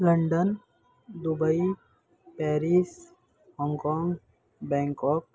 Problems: constant background noise, background conversations at intervals